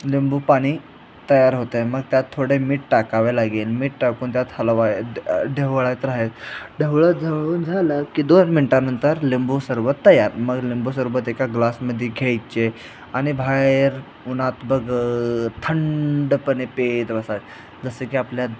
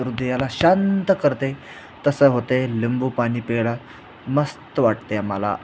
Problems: none marked